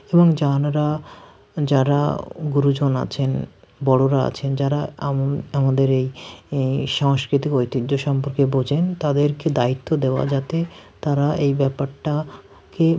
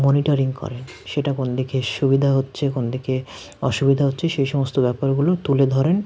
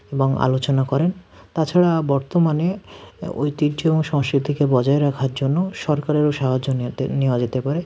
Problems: background sounds at intervals